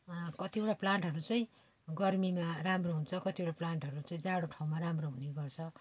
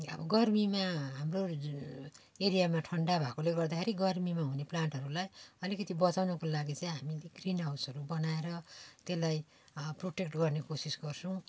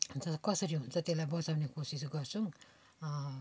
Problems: background sounds at intervals